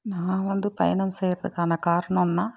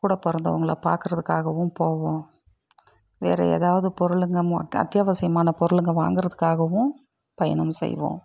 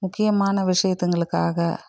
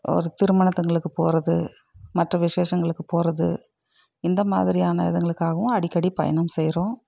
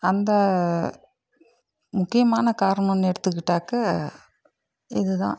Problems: none marked